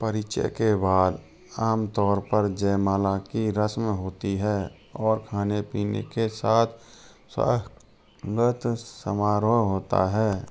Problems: background sounds at intervals